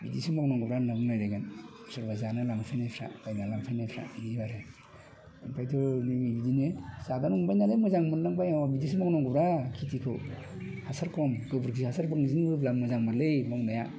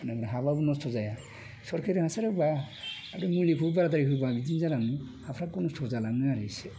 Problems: constant background noise